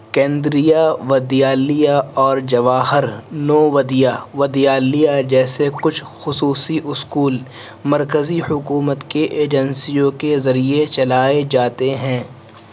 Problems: constant background noise